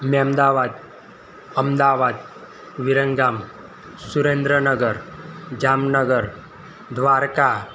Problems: constant background noise